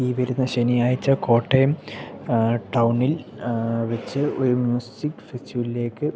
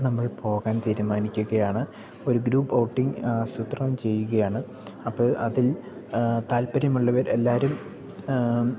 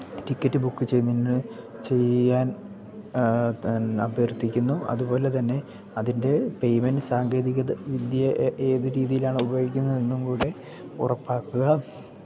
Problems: background sounds at intervals, low volume